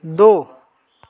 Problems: continuous background conversations